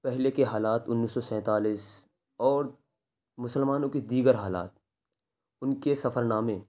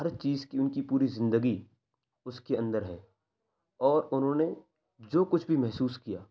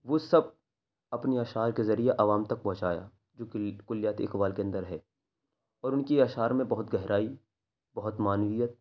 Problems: none marked